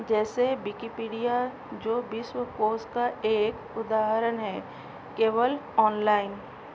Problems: none marked